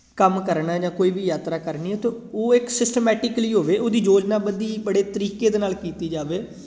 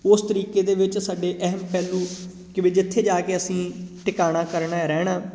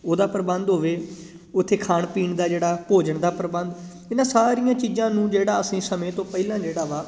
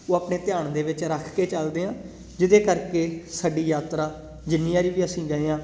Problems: constant background noise